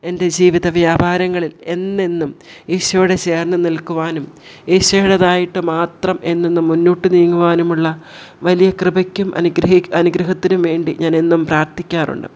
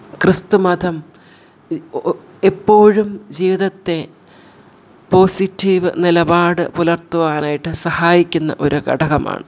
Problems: none marked